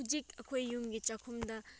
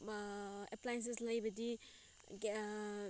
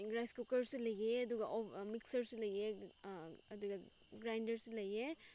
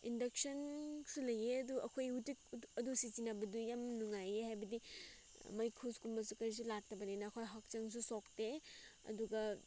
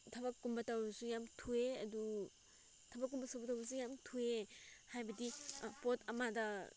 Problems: background sounds at intervals